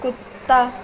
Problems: constant background noise